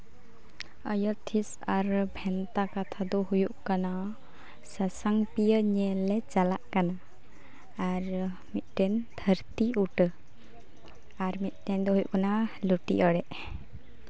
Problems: constant background noise, continuous background conversations